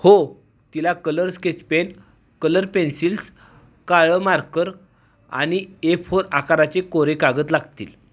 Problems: none marked